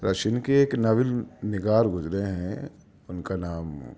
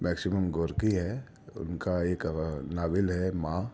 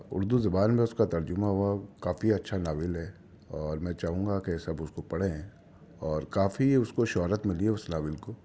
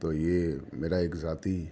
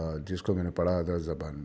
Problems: background sounds at intervals